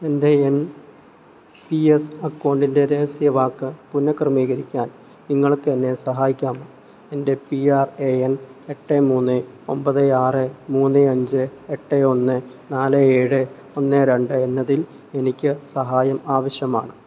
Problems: none marked